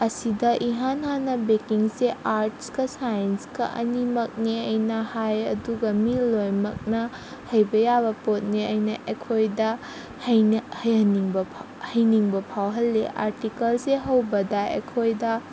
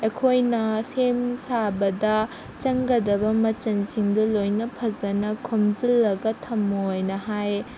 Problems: constant background noise